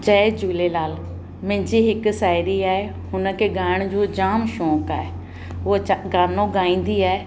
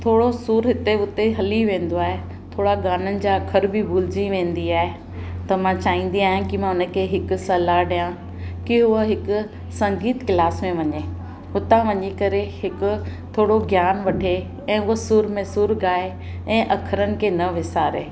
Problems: constant background noise